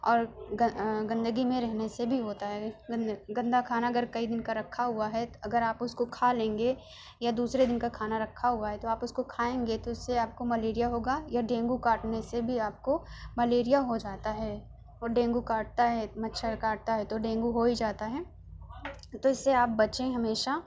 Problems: constant background noise, background conversations at intervals